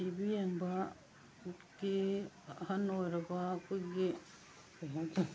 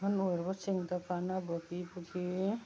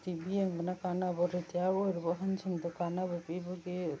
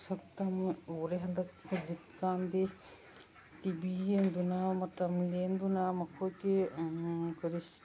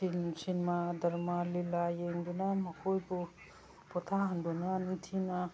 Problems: background sounds at intervals